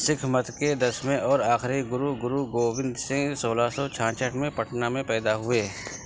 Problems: constant background noise